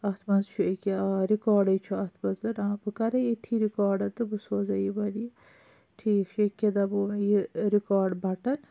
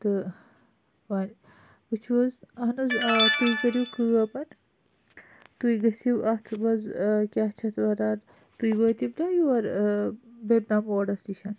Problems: constant background noise